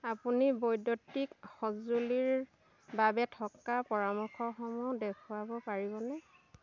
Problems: none marked